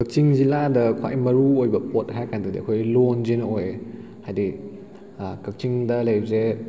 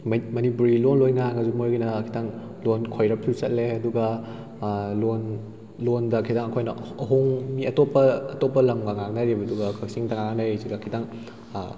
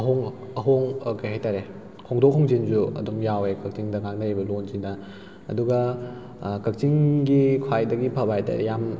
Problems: none marked